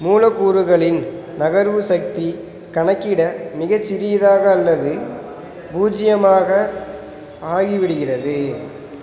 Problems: background sounds at intervals